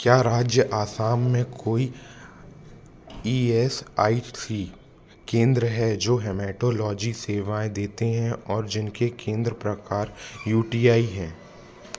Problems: constant background noise, background conversations at intervals